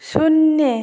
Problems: none marked